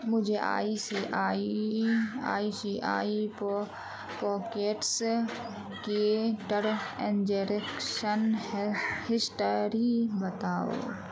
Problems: constant background noise